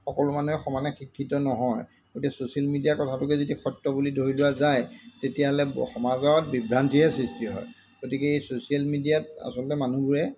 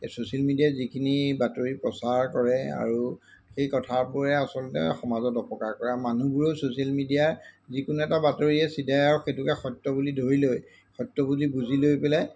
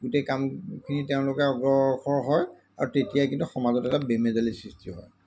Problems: none marked